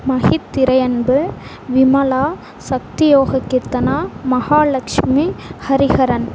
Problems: none marked